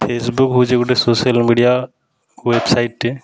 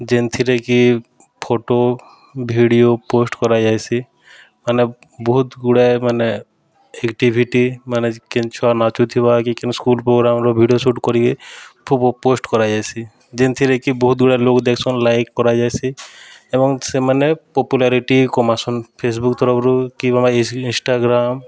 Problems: constant background noise